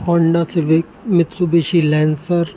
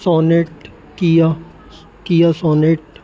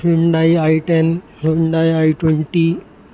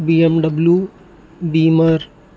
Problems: constant background noise